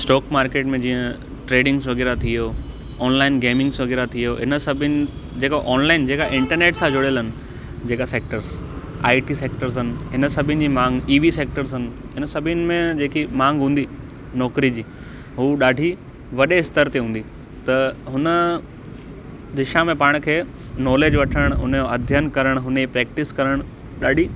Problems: constant background noise